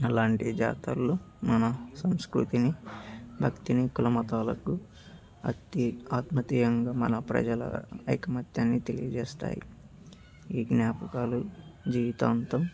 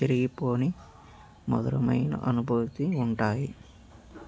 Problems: background sounds at intervals